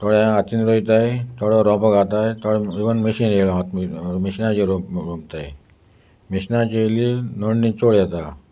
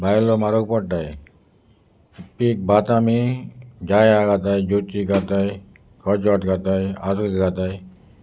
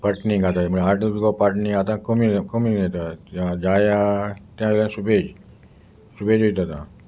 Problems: constant background noise